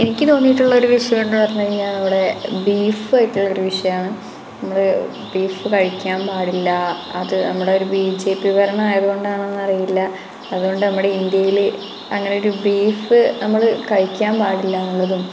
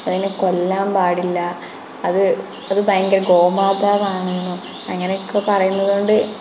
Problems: constant background noise